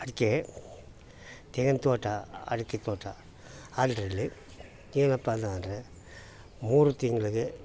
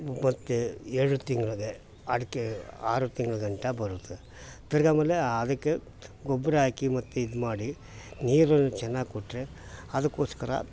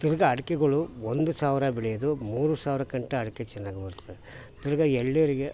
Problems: background sounds at intervals